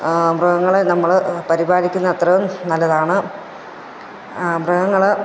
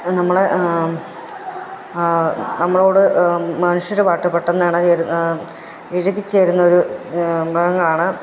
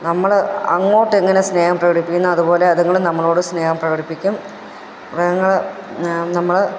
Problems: none marked